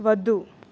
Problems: none marked